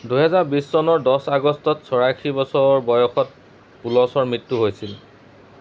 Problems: background sounds at intervals